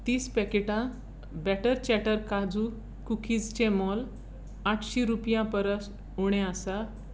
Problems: constant background noise